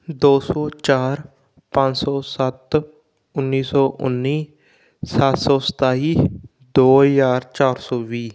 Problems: background sounds at intervals